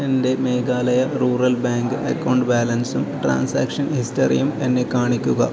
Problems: continuous background conversations, low volume